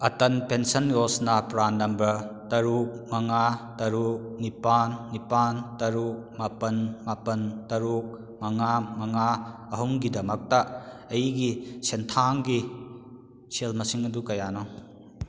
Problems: none marked